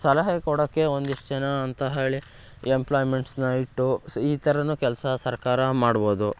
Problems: background sounds at intervals